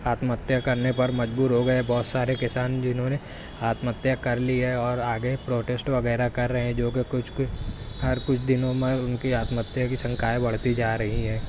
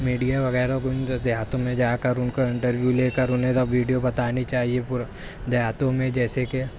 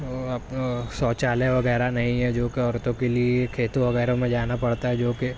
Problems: constant background noise, continuous background conversations